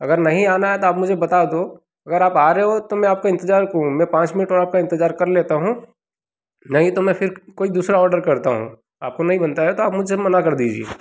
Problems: background sounds at intervals